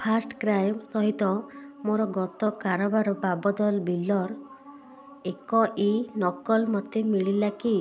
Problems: constant background noise